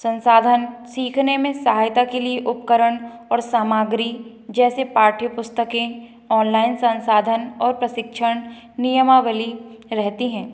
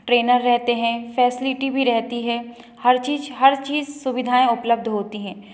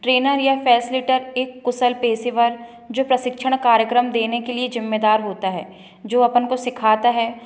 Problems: background sounds at intervals